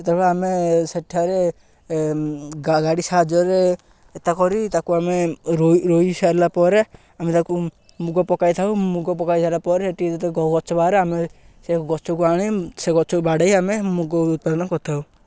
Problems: none marked